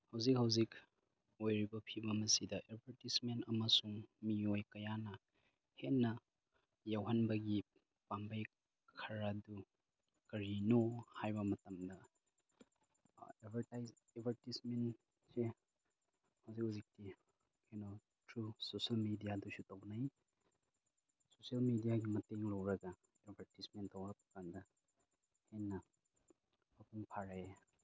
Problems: low volume